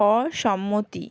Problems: none marked